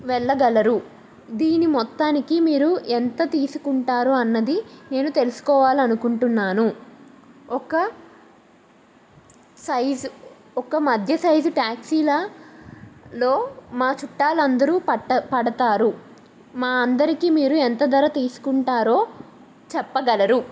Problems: none marked